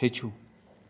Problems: background sounds at intervals